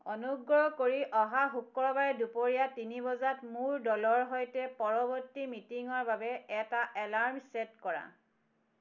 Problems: none marked